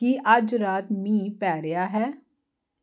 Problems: constant background noise